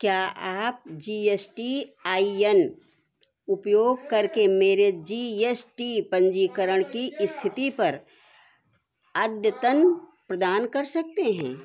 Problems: none marked